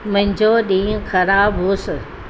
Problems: constant background noise